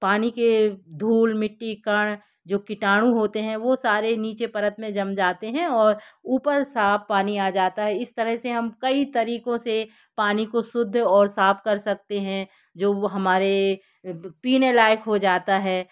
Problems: none marked